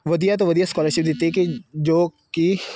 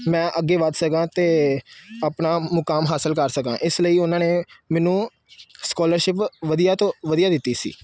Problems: constant background noise